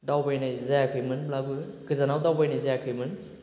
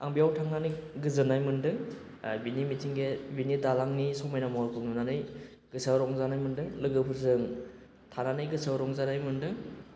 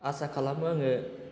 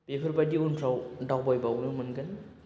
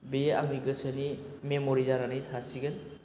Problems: none marked